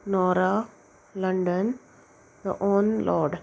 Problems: none marked